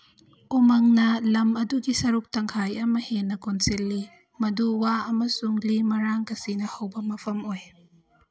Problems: background sounds at intervals